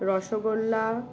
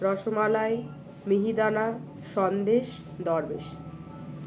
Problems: constant background noise, background conversations at intervals